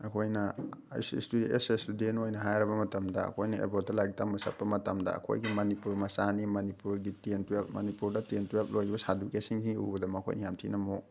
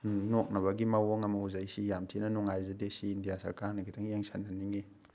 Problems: background sounds at intervals